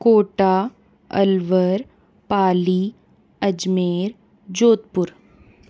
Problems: background sounds at intervals